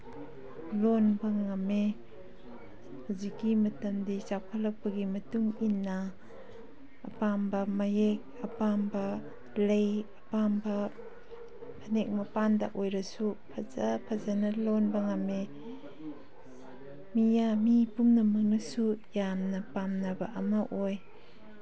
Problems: background sounds at intervals